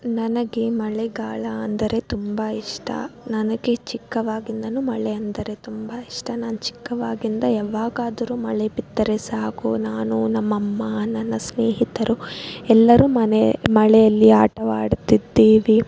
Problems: background sounds at intervals